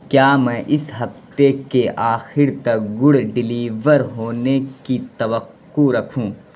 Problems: constant background noise